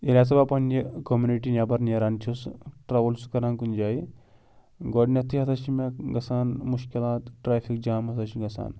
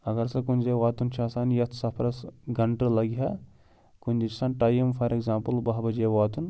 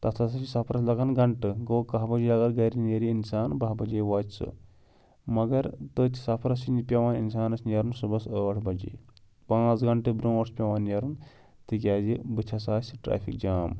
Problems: none marked